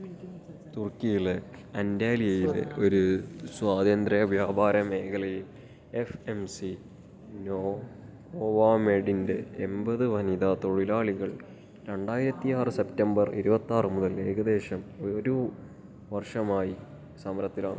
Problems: low volume